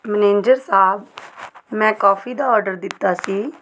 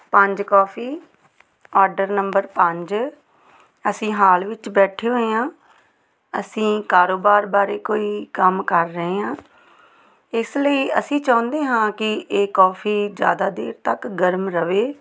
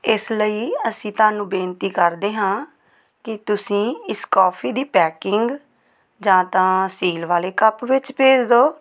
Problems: none marked